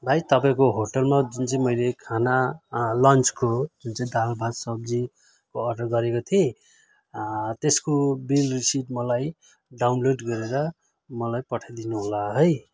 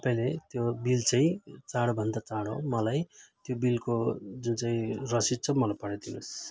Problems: none marked